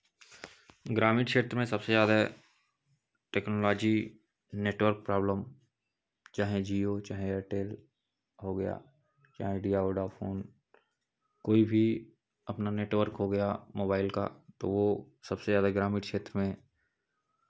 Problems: constant background noise, background conversations at intervals